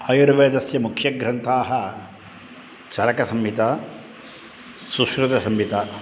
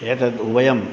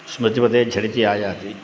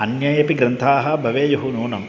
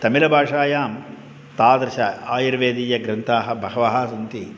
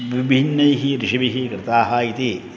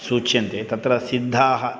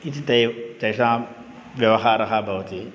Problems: constant background noise